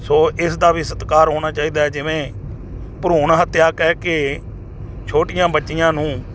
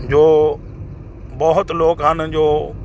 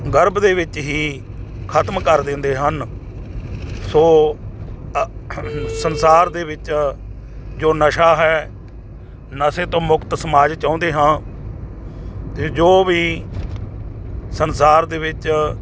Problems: constant background noise